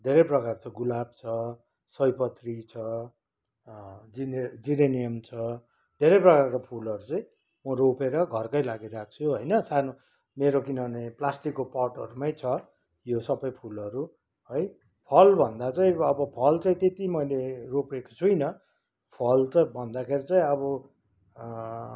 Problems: none marked